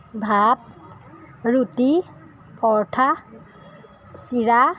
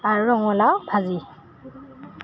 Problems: background sounds at intervals